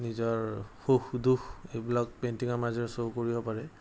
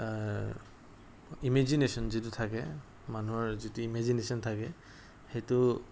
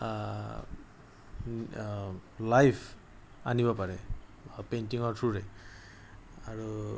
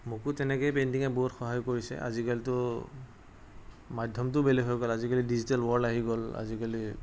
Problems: background sounds at intervals